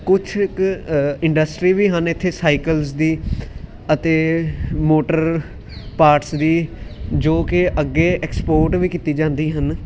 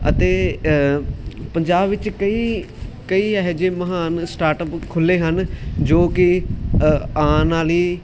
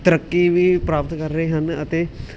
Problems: none marked